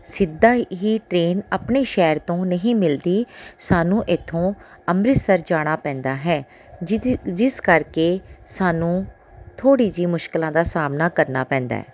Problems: background sounds at intervals